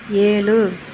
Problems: constant background noise